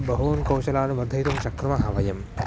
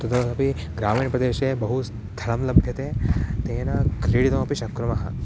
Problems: background sounds at intervals